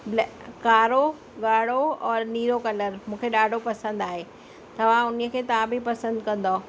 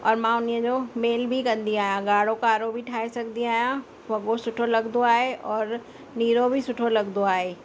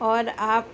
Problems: constant background noise